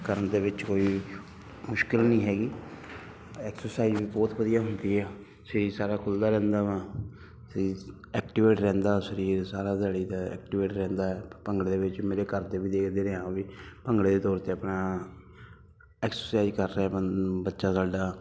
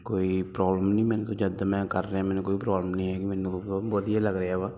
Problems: constant background noise